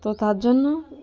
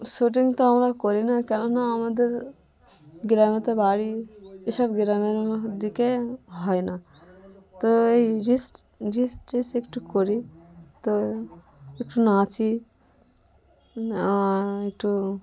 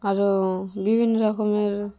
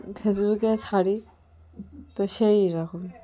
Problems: none marked